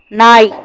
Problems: constant background noise